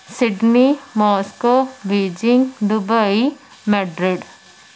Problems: constant background noise